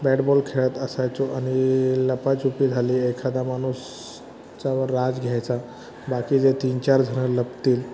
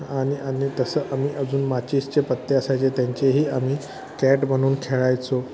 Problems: constant background noise, continuous background conversations